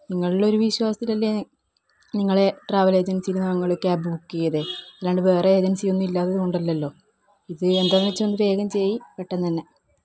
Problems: none marked